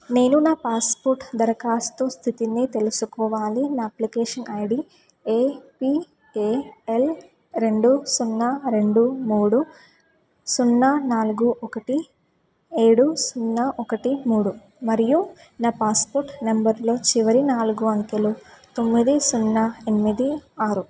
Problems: background conversations at intervals